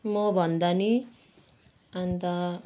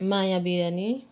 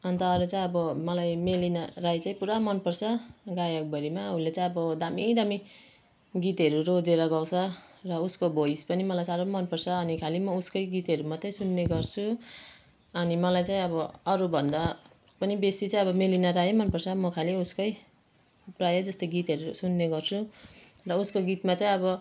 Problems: background conversations at intervals